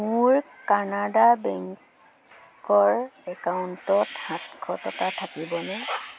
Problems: constant background noise